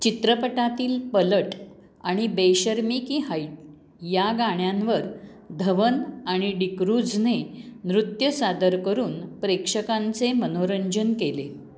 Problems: background sounds at intervals